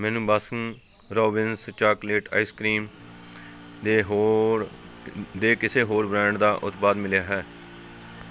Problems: constant background noise, background conversations at intervals